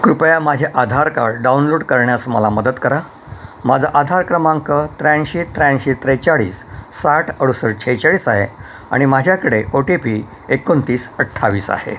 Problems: constant background noise